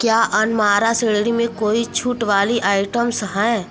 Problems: continuous background conversations